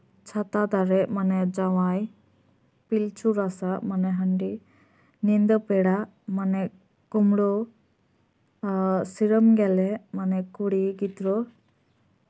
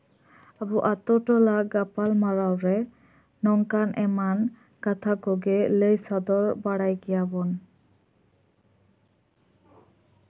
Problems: none marked